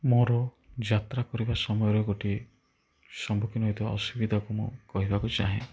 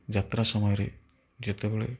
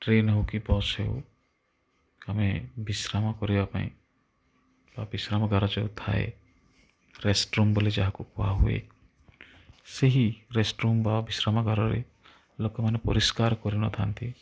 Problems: none marked